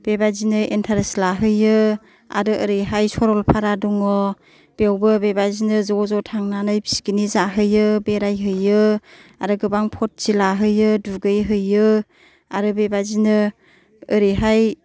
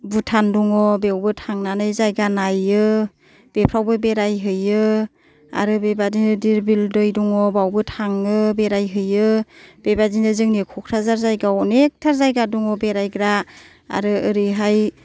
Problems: none marked